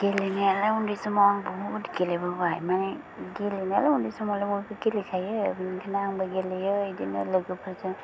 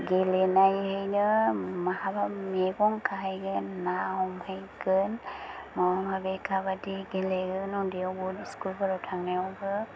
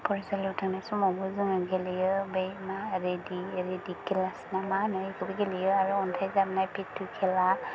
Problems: low volume